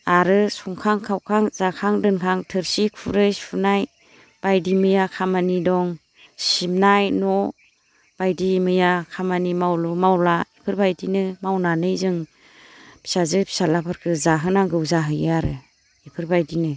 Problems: constant background noise